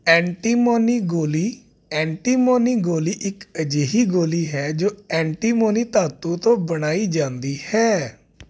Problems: none marked